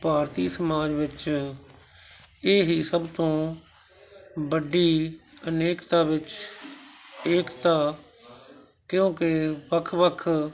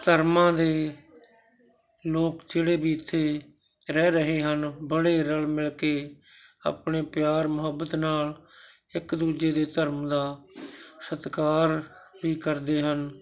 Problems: continuous background conversations